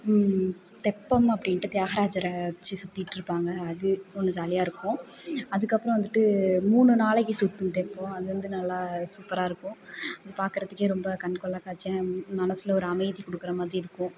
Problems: background sounds at intervals